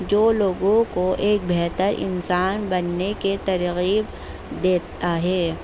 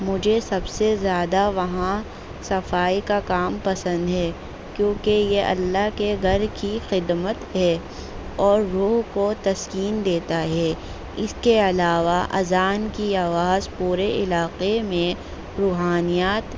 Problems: constant background noise